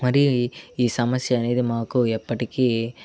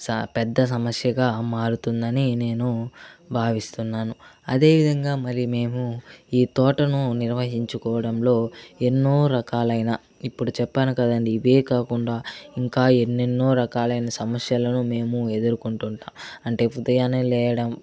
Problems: constant background noise